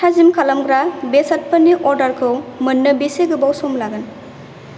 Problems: constant background noise